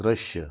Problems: low volume